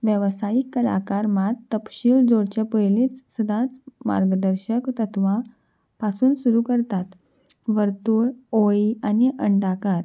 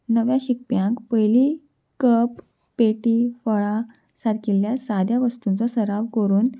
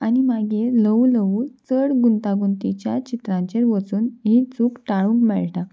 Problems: background sounds at intervals